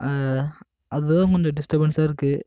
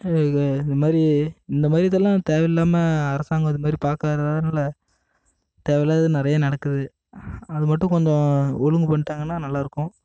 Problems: constant background noise